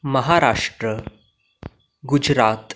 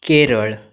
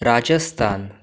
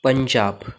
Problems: background sounds at intervals